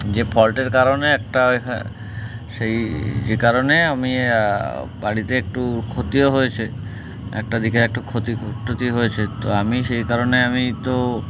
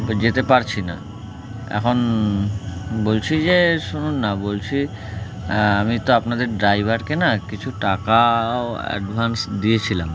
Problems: constant background noise, continuous background conversations